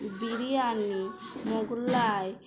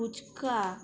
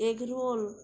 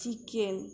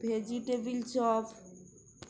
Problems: constant background noise